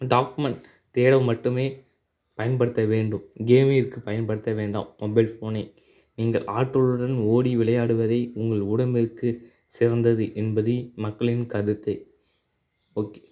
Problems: none marked